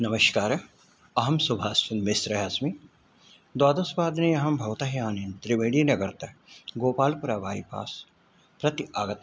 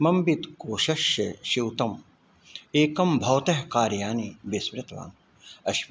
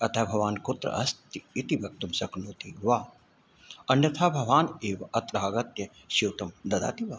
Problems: none marked